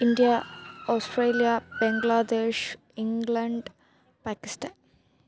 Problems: continuous background conversations, low volume